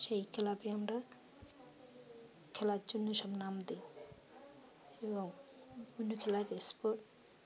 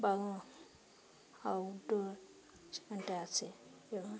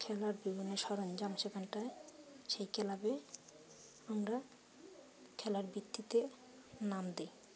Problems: constant background noise, continuous background conversations